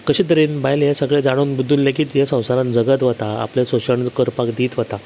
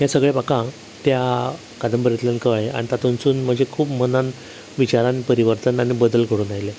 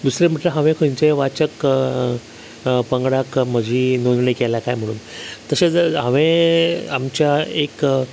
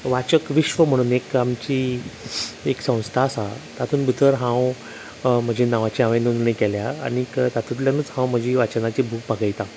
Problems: constant background noise